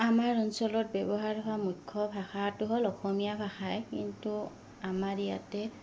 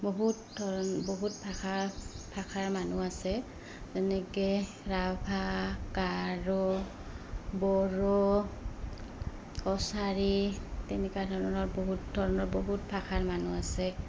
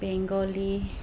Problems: background sounds at intervals